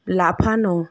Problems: none marked